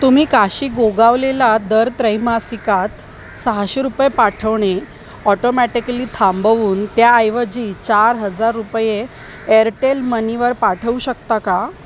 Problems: constant background noise